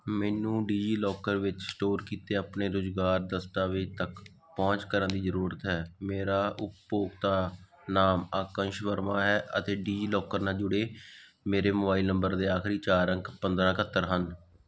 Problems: background sounds at intervals